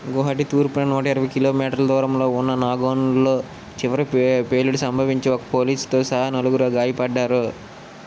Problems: constant background noise